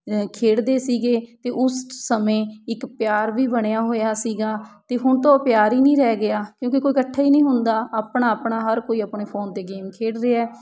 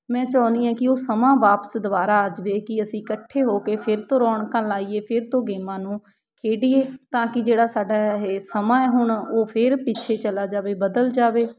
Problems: background sounds at intervals